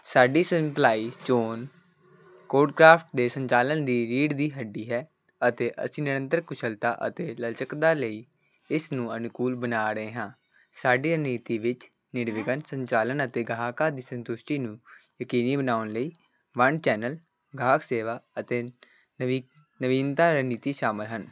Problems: none marked